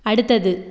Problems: constant background noise